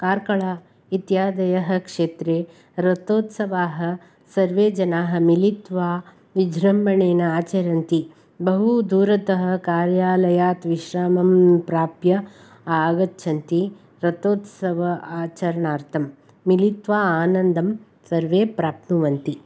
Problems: none marked